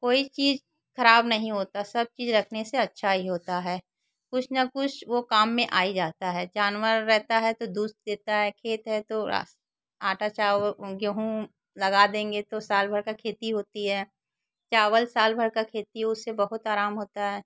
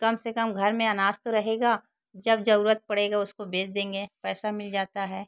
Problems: constant background noise, background conversations at intervals